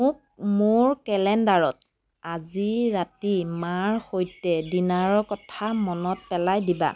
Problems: constant background noise